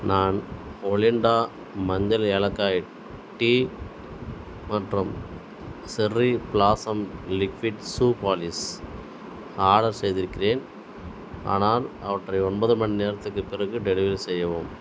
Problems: background sounds at intervals